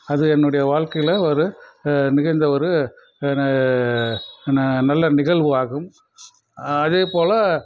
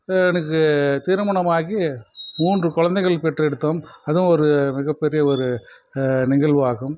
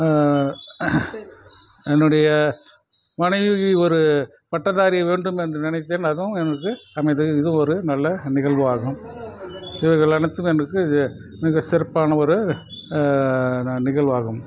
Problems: background sounds at intervals